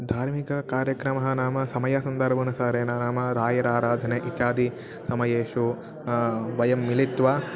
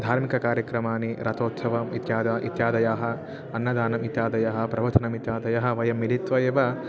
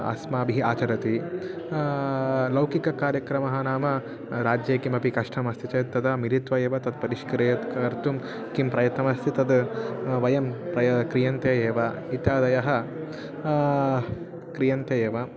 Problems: none marked